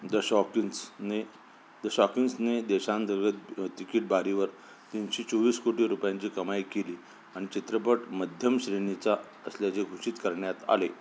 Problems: constant background noise